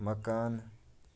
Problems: background sounds at intervals, low volume